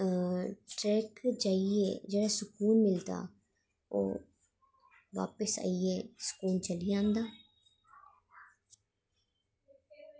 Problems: constant background noise